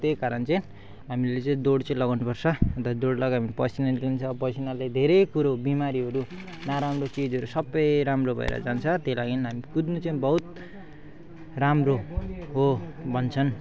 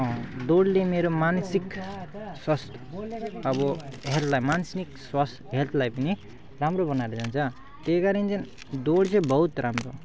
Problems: background sounds at intervals